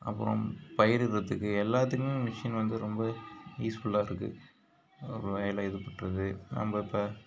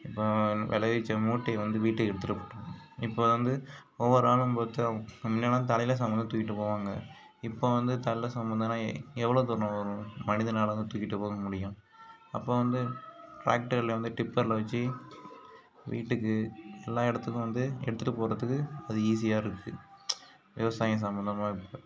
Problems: constant background noise